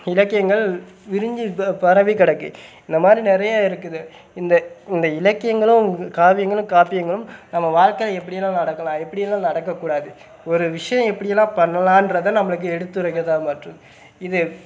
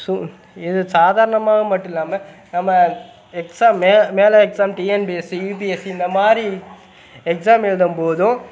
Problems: none marked